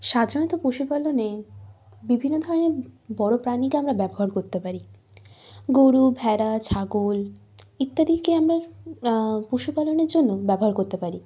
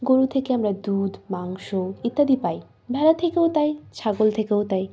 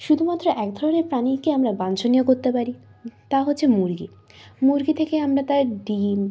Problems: background sounds at intervals